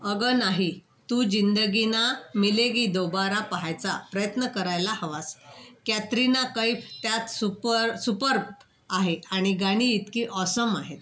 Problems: background sounds at intervals, background conversations at intervals